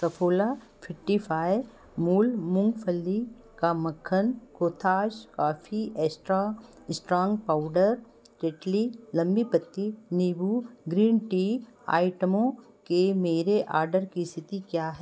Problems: none marked